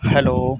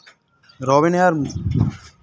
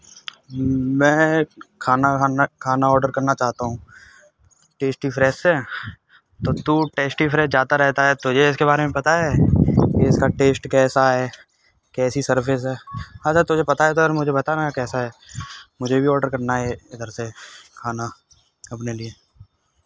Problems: constant background noise